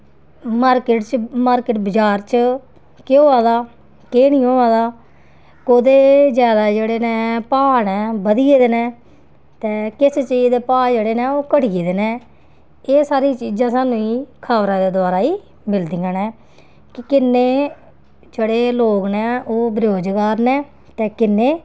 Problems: constant background noise